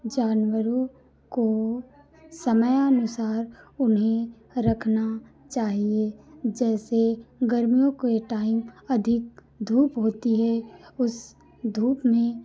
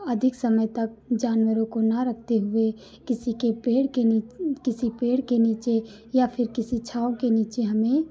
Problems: none marked